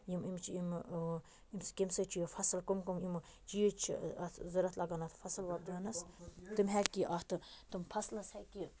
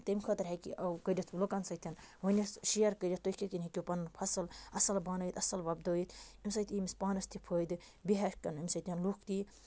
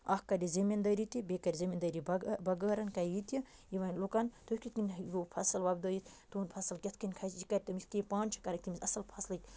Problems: none marked